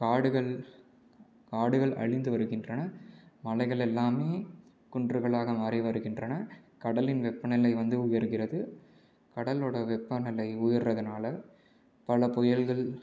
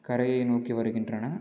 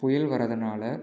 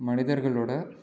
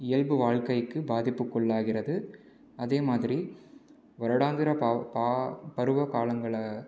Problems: low volume